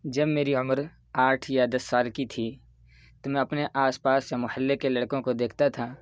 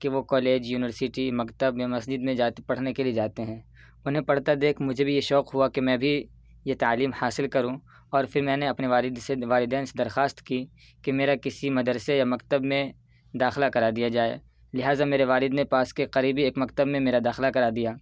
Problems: background sounds at intervals